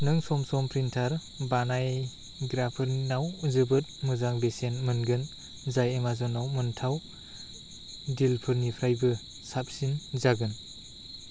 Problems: none marked